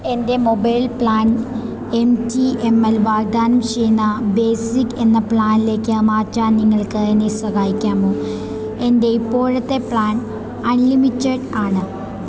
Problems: constant background noise